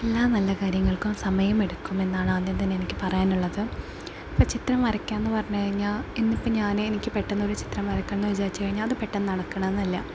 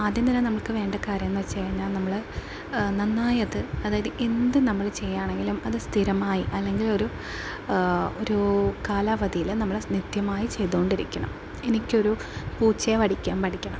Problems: constant background noise